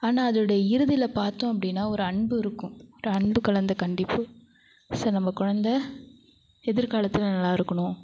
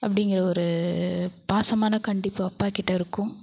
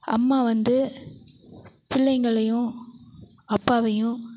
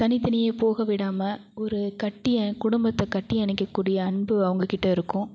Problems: none marked